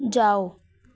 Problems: background sounds at intervals